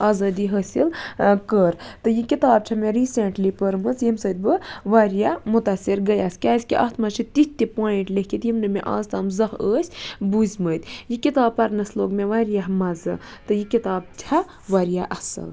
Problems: none marked